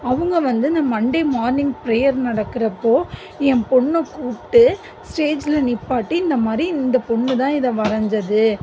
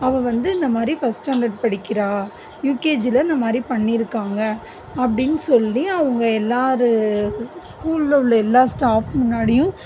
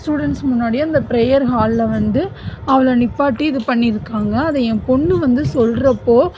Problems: none marked